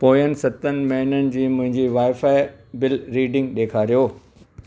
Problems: constant background noise